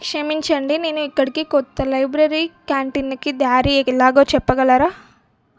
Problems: none marked